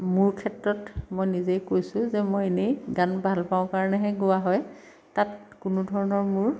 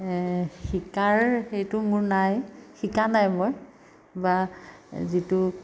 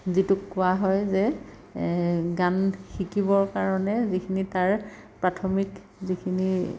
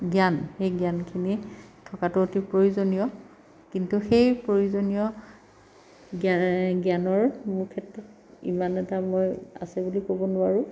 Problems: background sounds at intervals